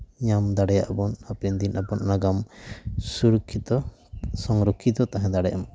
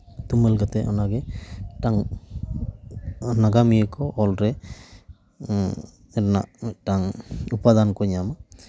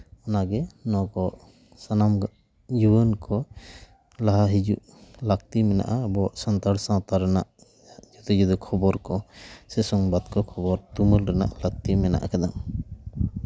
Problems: background sounds at intervals